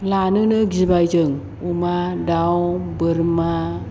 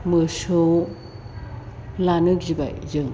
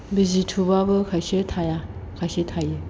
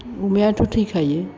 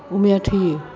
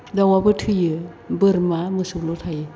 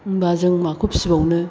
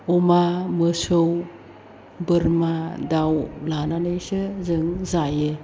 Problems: constant background noise